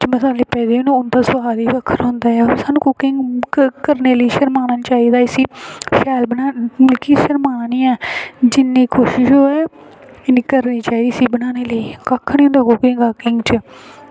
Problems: constant background noise